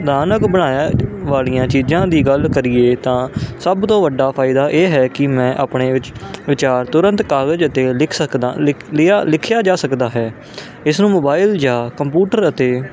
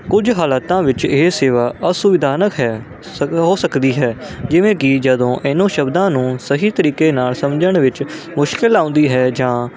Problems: constant background noise